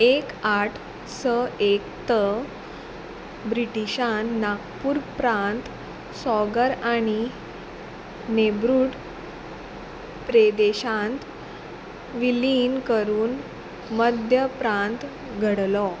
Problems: none marked